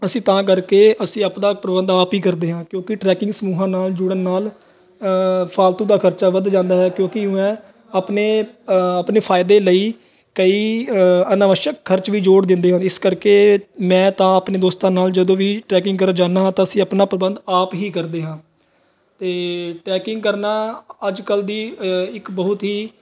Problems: background sounds at intervals, background conversations at intervals